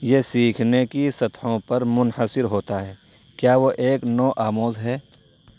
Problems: none marked